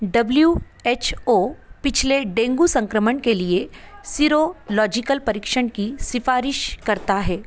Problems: constant background noise